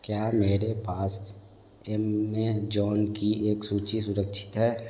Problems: none marked